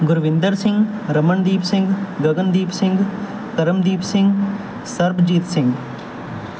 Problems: none marked